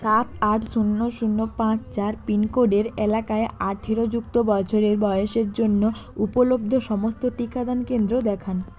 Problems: constant background noise, background conversations at intervals